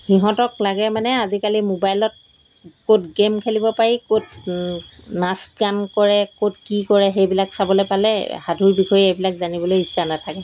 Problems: background sounds at intervals